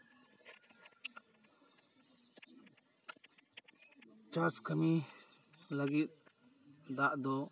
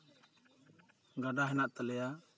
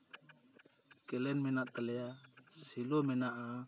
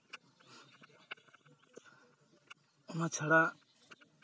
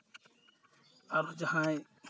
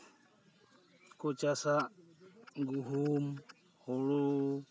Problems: constant background noise, continuous background conversations